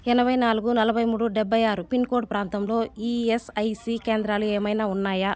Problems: constant background noise, continuous background conversations